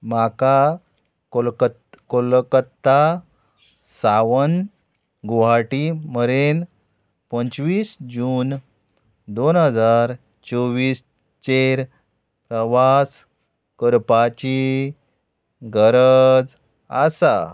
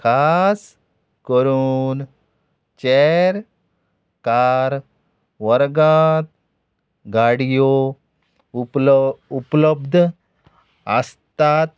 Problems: background sounds at intervals